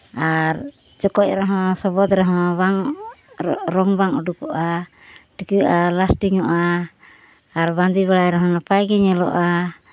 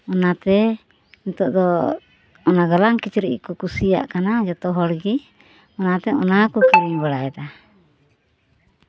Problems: background sounds at intervals